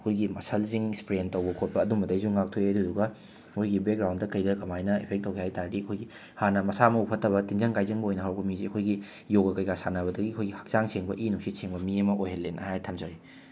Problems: background sounds at intervals